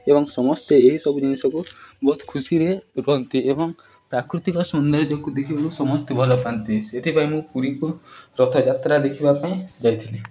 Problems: background sounds at intervals